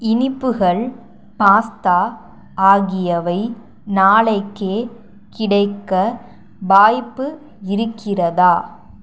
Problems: none marked